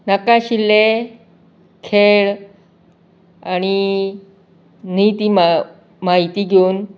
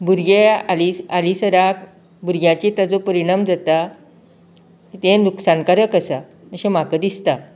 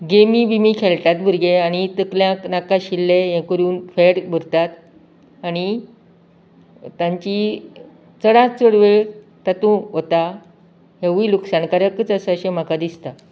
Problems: none marked